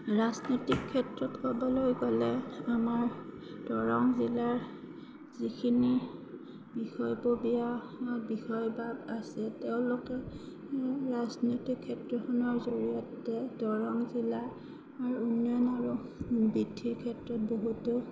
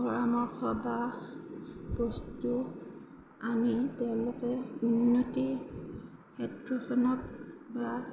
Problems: none marked